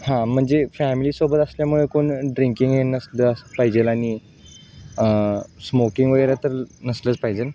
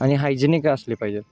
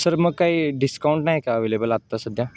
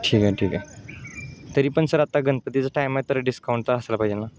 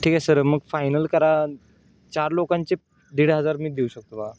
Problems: background sounds at intervals, background conversations at intervals